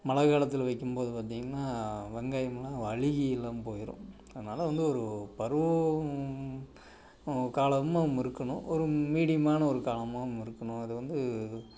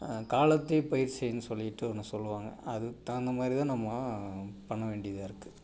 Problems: background sounds at intervals